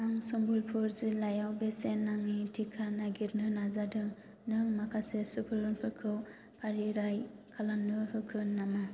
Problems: low volume